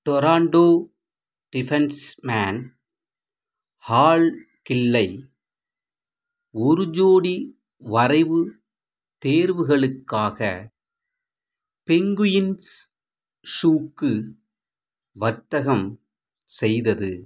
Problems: none marked